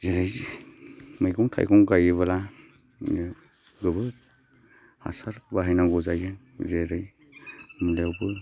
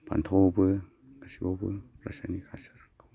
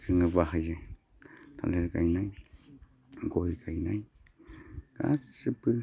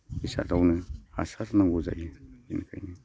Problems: constant background noise